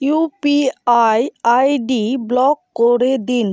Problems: none marked